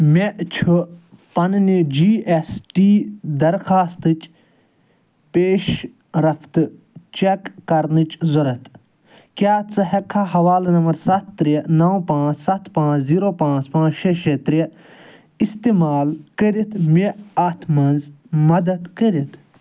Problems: none marked